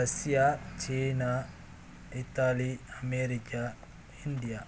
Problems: none marked